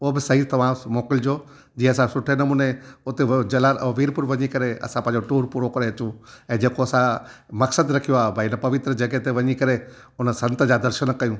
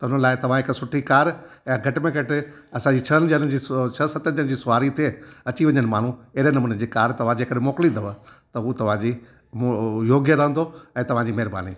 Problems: none marked